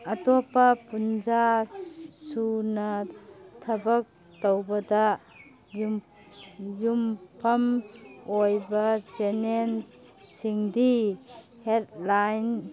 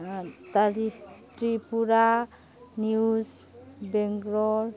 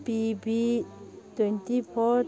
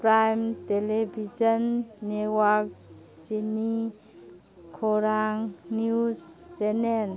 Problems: background sounds at intervals